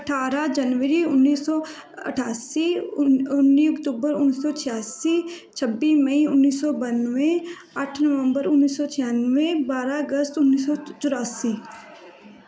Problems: background sounds at intervals, continuous background conversations